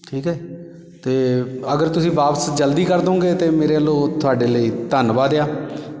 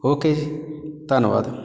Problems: background sounds at intervals